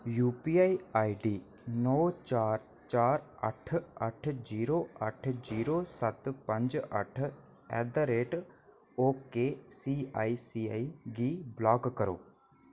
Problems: none marked